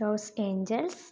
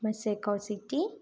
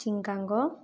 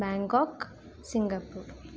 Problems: low volume